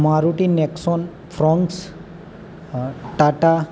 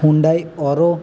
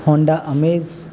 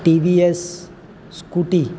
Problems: constant background noise